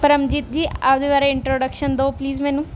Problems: constant background noise, background conversations at intervals